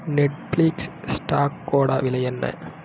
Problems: background sounds at intervals